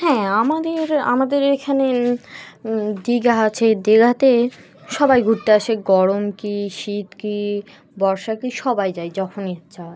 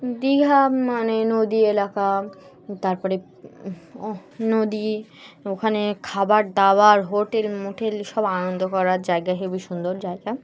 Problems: background sounds at intervals